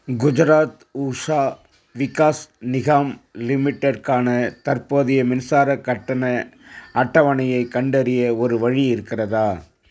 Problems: constant background noise